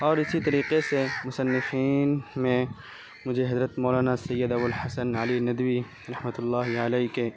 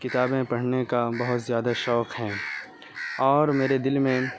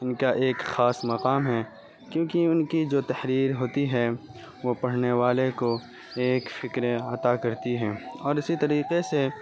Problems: constant background noise